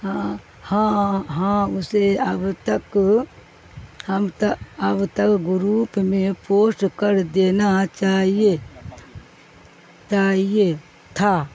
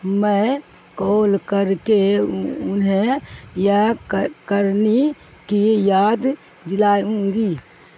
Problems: constant background noise